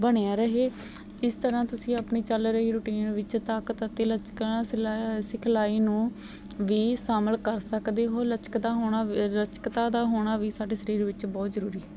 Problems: none marked